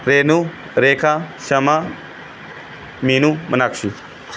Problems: none marked